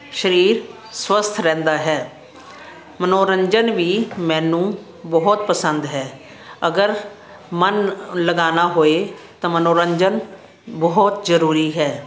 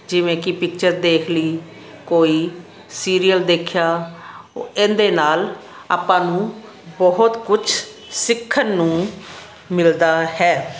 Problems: constant background noise